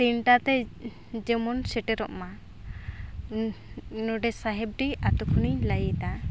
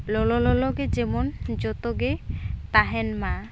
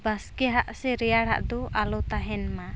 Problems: constant background noise